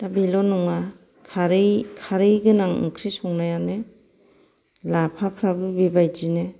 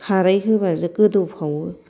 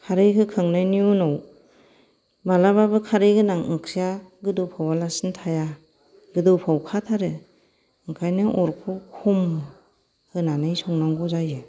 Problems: background sounds at intervals